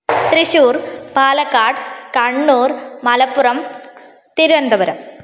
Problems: constant background noise